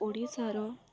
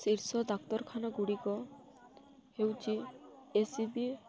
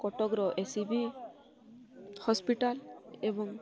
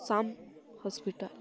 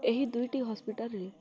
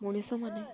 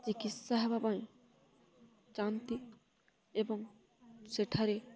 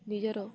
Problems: constant background noise, continuous background conversations